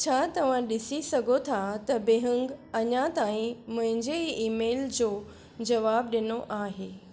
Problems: none marked